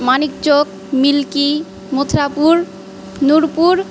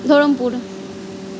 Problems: none marked